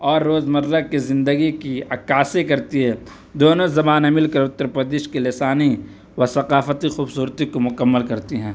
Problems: none marked